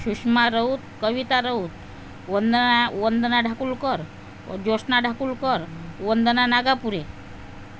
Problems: constant background noise